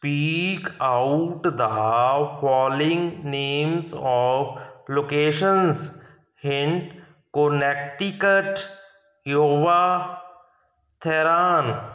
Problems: background sounds at intervals